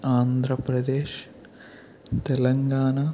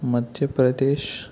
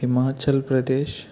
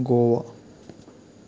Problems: none marked